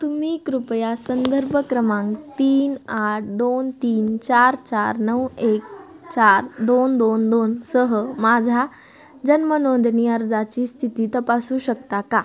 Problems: background sounds at intervals